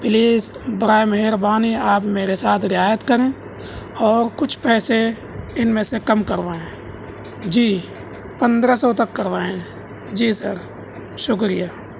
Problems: constant background noise